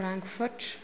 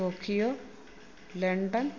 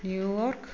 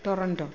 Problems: constant background noise, low volume